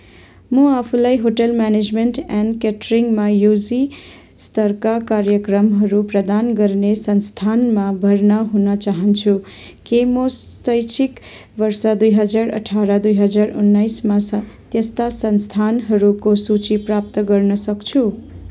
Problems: none marked